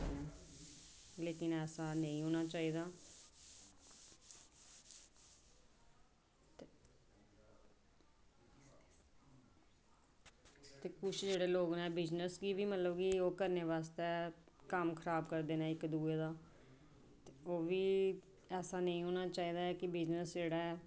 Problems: background sounds at intervals, background conversations at intervals